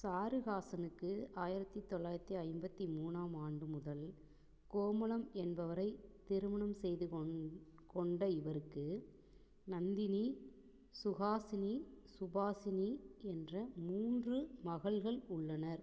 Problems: low volume